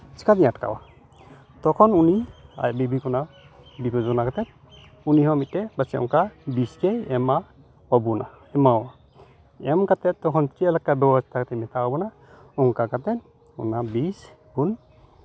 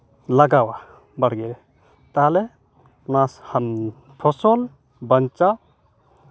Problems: none marked